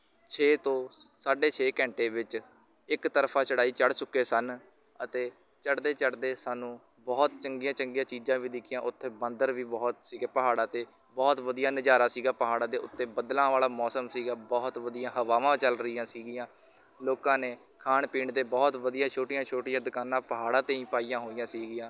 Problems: background sounds at intervals, continuous background conversations